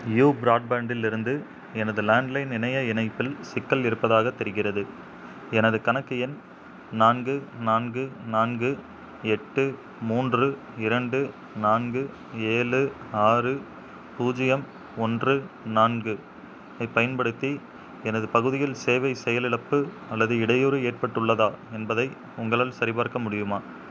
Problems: background sounds at intervals